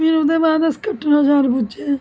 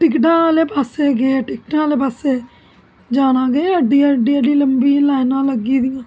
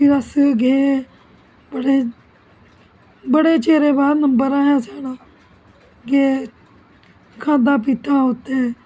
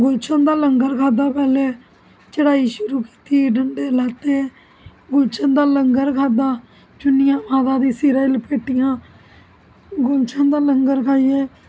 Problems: constant background noise